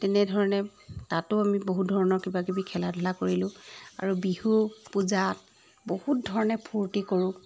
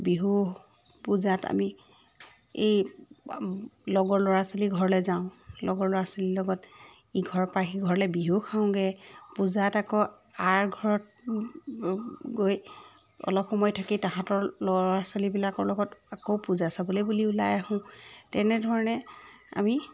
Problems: background sounds at intervals